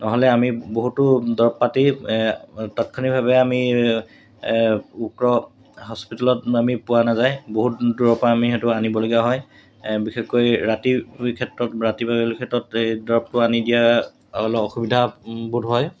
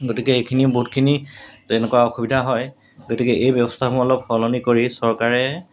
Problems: background sounds at intervals